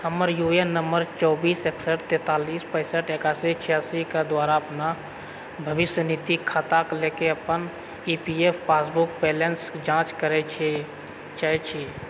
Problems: background sounds at intervals